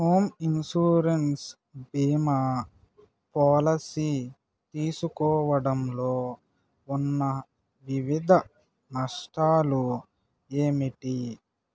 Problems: none marked